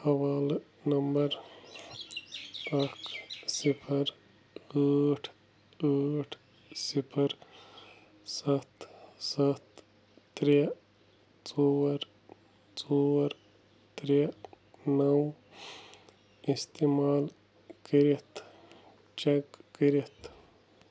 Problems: none marked